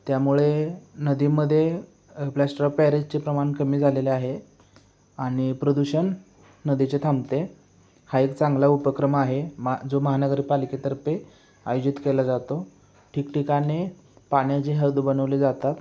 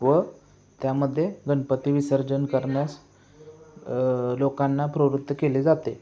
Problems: background sounds at intervals